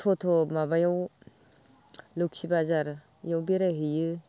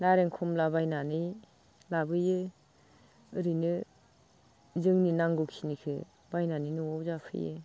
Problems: constant background noise